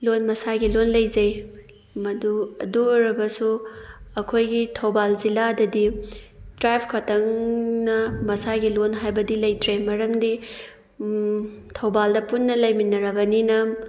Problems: background sounds at intervals